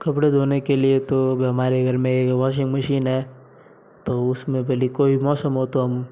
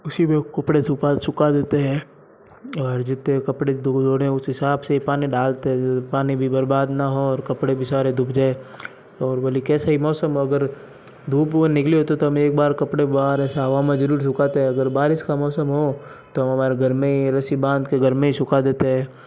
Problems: background sounds at intervals, low volume